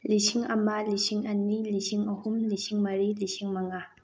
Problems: none marked